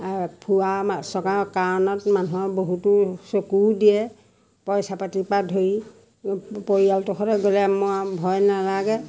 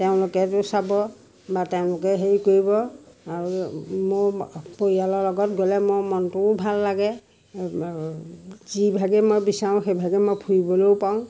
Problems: constant background noise, background conversations at intervals